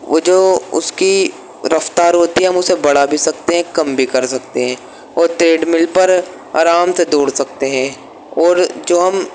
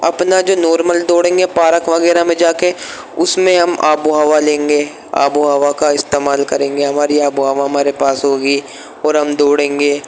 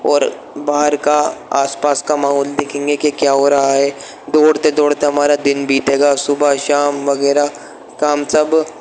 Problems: constant background noise